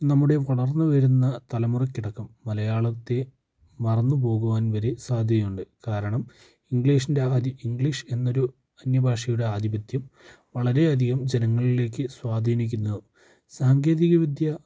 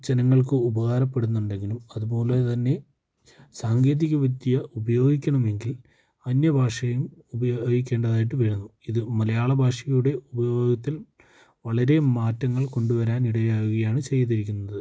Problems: low volume